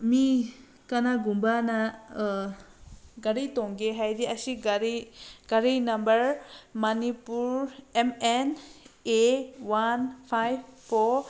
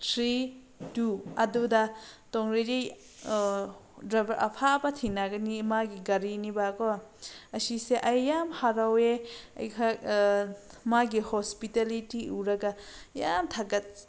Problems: background sounds at intervals